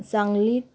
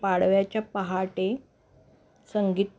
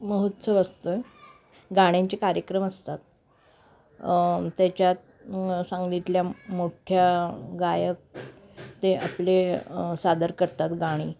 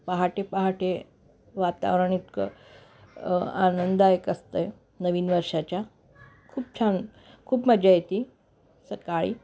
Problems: constant background noise, background conversations at intervals